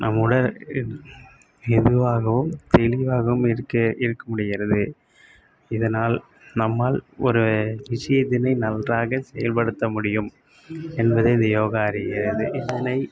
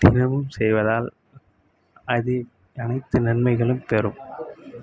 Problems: constant background noise